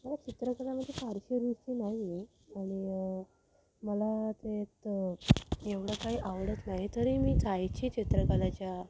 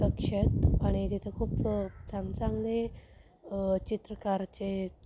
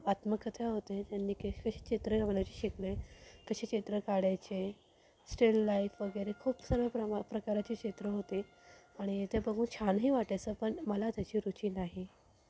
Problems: background sounds at intervals